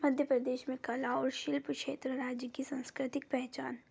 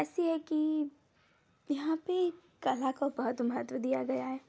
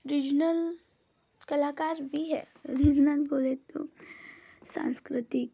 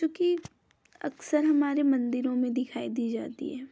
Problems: none marked